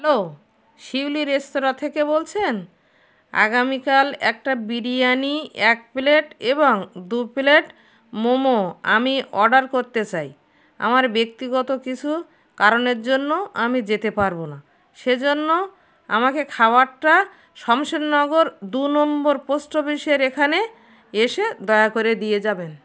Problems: none marked